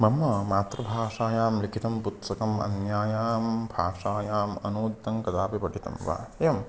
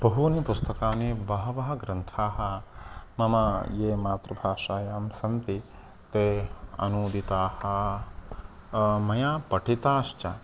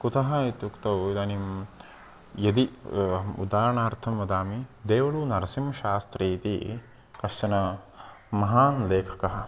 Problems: constant background noise